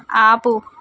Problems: background conversations at intervals